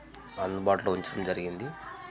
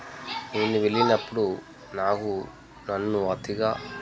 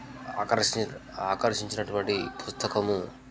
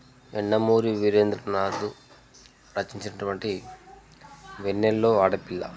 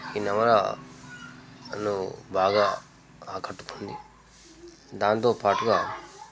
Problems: constant background noise, continuous background conversations